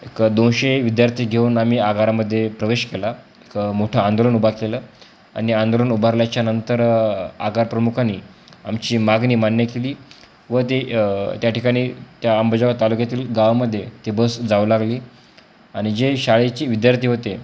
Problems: constant background noise